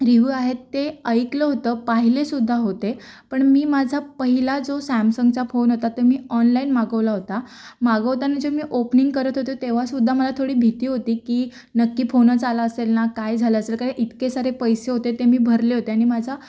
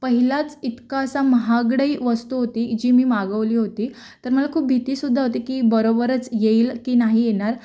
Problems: background sounds at intervals